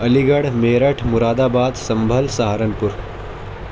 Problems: constant background noise